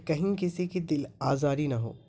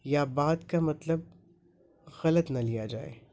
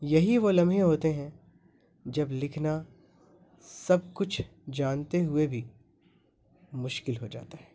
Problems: constant background noise